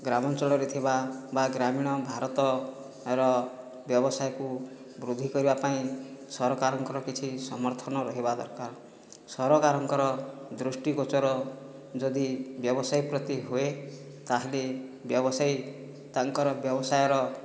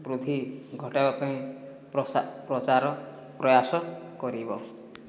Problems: low volume